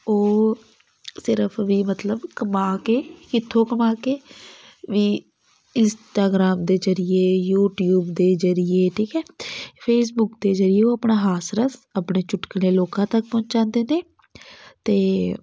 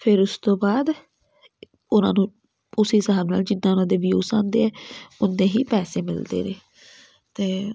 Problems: none marked